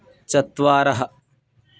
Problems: constant background noise